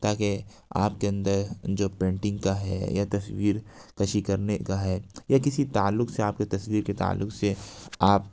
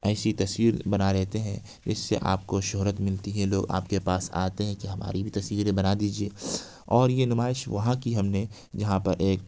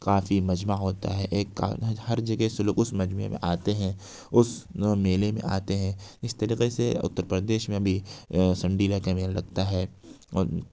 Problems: none marked